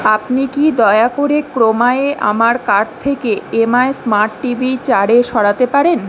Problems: constant background noise